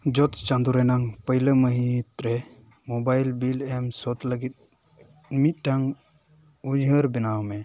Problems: none marked